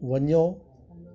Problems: constant background noise, echo